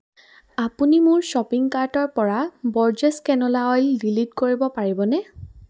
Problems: none marked